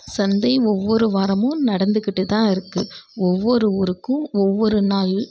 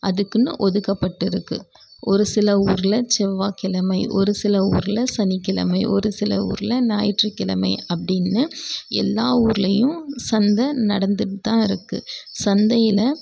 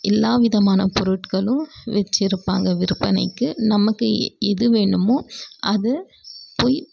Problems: none marked